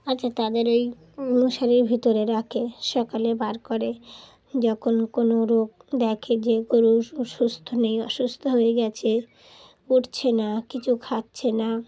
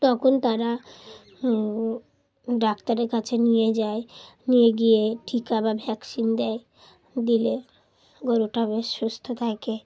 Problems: background sounds at intervals